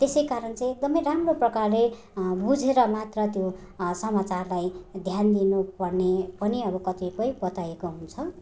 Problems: none marked